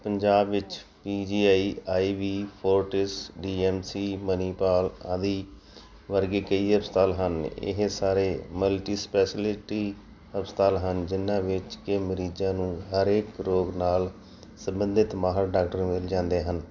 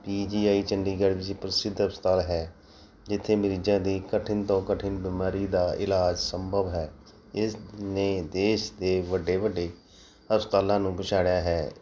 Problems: none marked